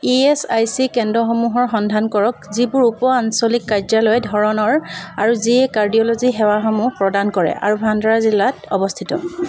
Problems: none marked